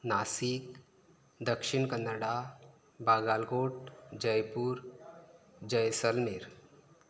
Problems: none marked